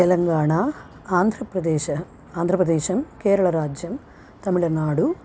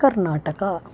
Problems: constant background noise